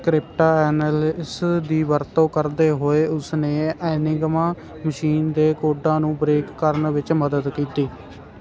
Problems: none marked